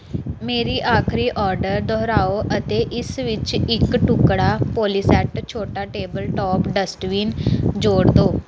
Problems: none marked